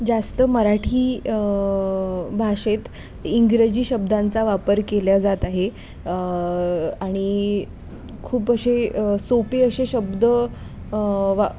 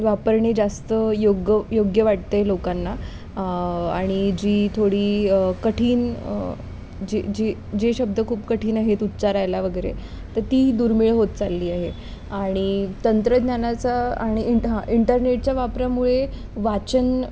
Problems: constant background noise